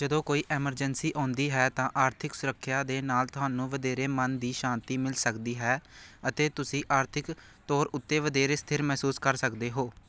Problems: none marked